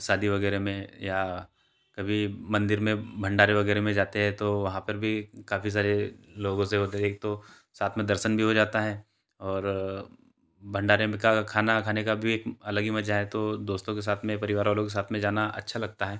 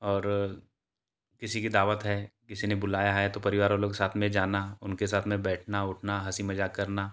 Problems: constant background noise